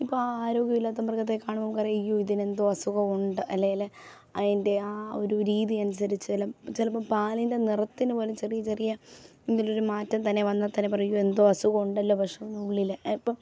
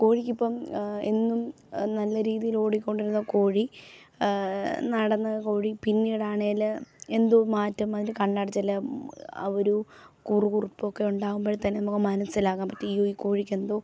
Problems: none marked